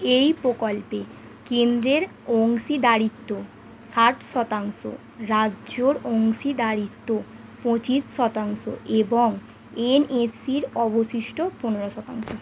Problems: none marked